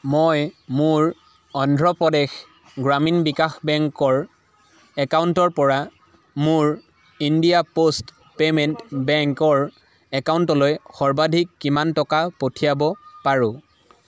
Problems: none marked